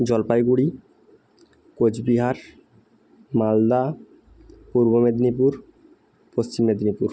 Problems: constant background noise